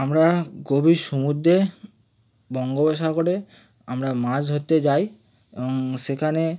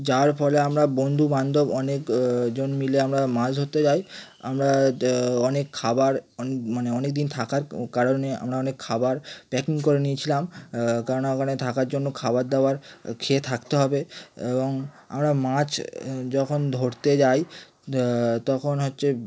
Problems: none marked